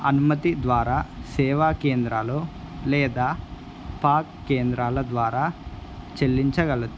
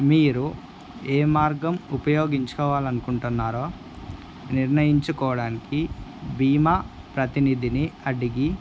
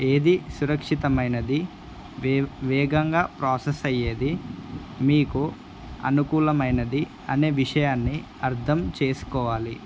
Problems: constant background noise